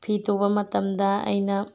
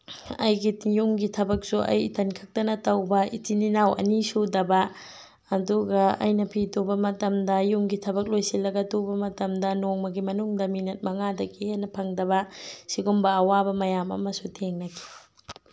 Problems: background sounds at intervals